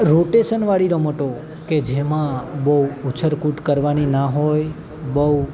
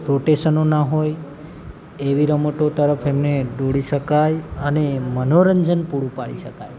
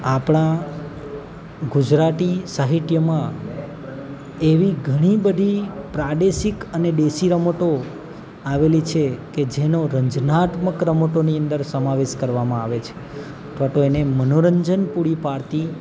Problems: constant background noise